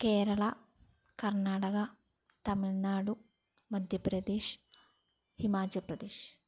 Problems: none marked